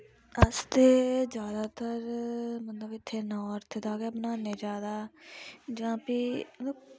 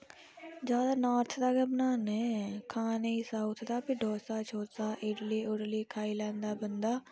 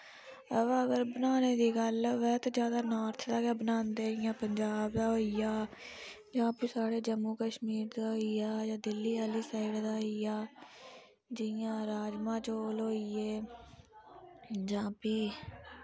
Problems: low volume